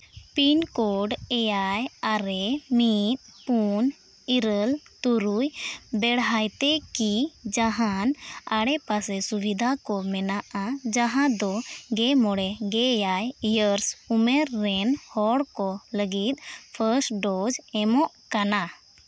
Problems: none marked